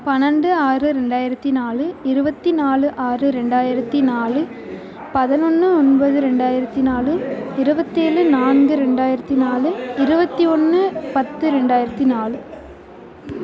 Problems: continuous background conversations